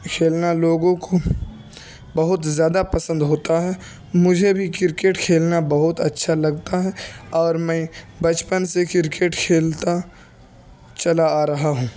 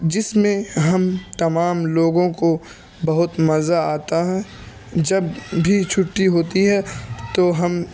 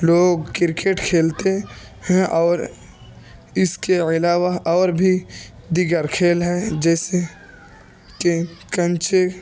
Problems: constant background noise, continuous background conversations